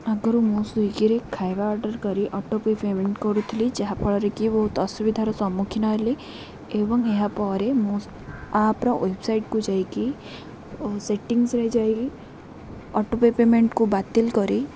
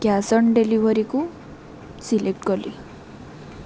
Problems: none marked